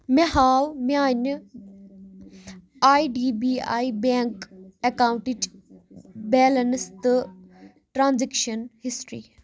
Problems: constant background noise